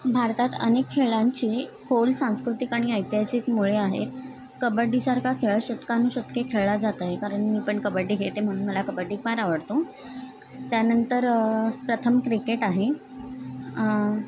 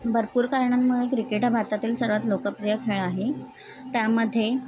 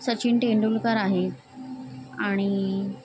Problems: background conversations at intervals